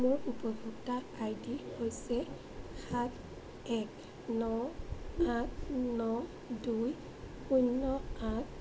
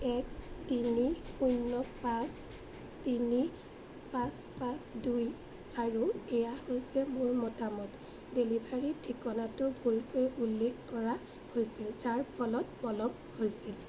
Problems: constant background noise